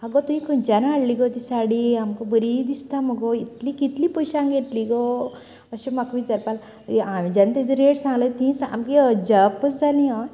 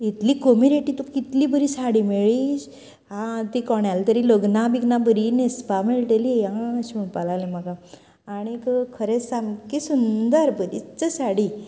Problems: continuous background conversations